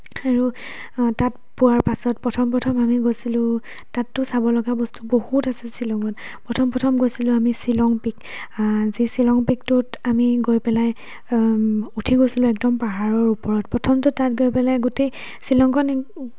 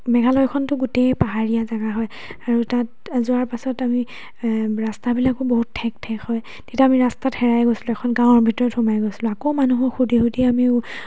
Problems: background conversations at intervals